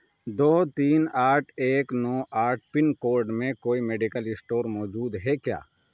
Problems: none marked